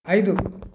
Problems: constant background noise